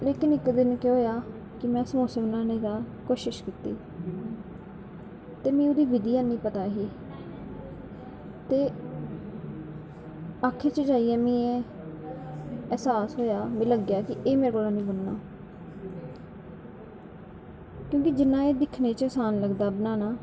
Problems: background sounds at intervals